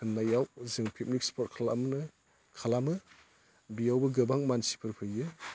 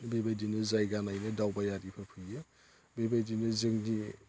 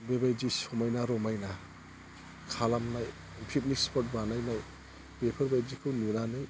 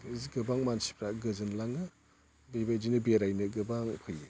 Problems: low volume